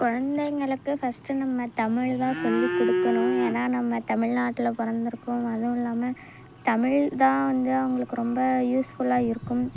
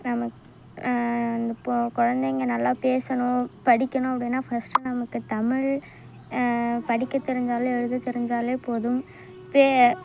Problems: background sounds at intervals